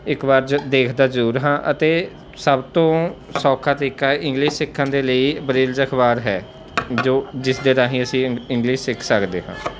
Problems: none marked